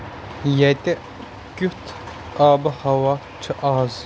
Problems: constant background noise